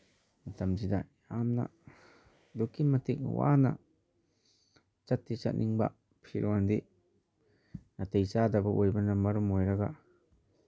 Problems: none marked